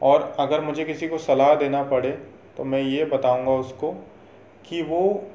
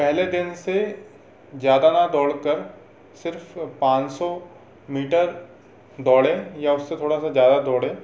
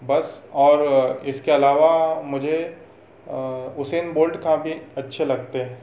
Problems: none marked